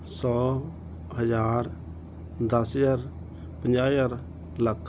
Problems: background sounds at intervals